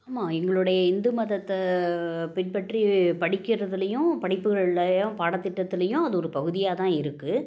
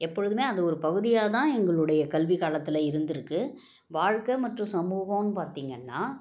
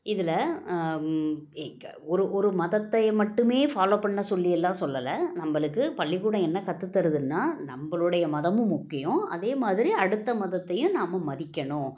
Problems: background sounds at intervals